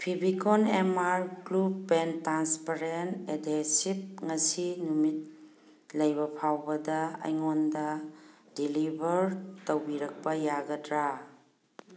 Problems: background sounds at intervals